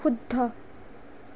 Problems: none marked